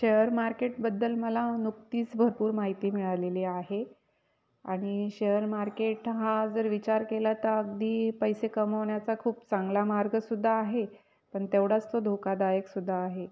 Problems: background sounds at intervals